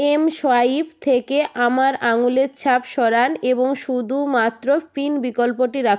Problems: none marked